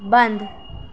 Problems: none marked